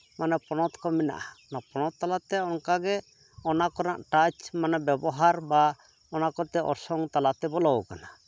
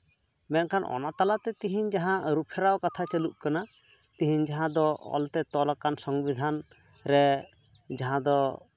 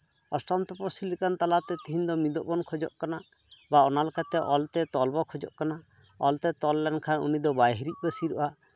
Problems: none marked